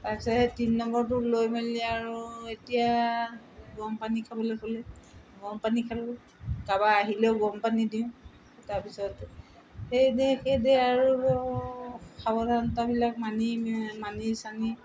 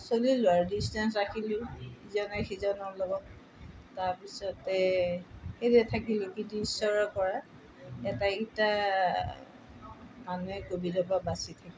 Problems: background sounds at intervals